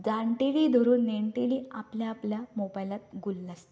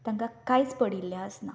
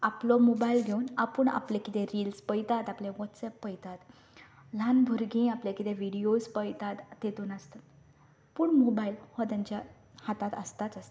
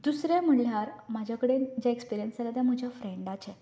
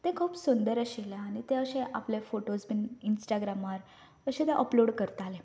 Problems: none marked